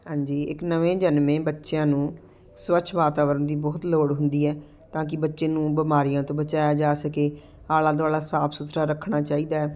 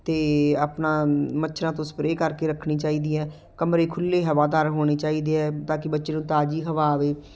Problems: none marked